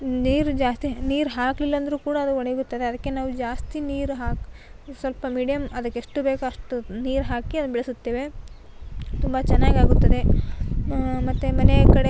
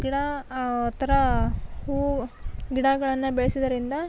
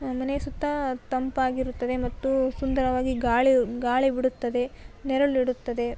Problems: background sounds at intervals